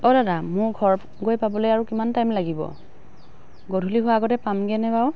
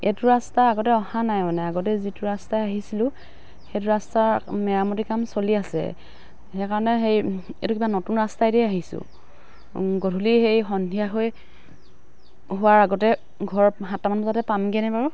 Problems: constant background noise